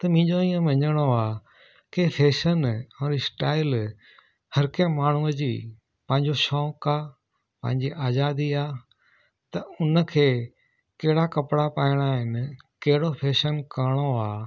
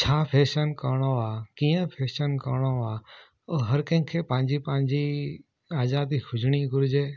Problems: none marked